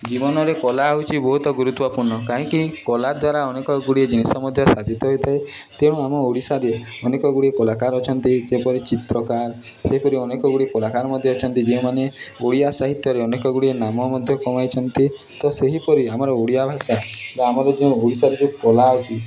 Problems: continuous background conversations